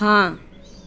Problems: background sounds at intervals